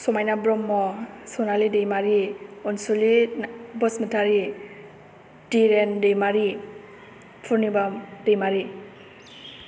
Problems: none marked